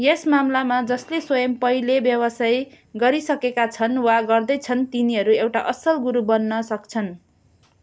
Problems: background sounds at intervals